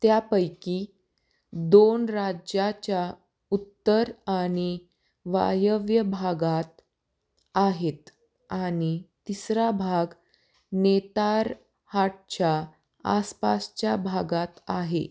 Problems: none marked